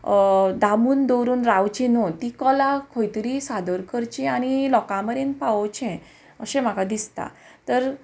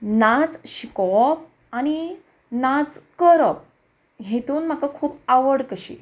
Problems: none marked